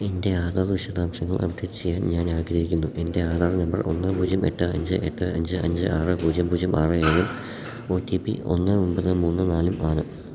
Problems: background sounds at intervals, low volume